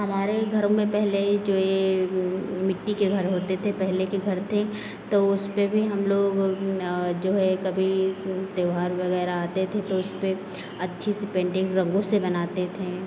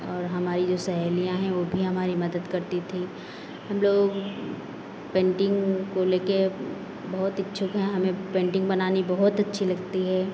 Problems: constant background noise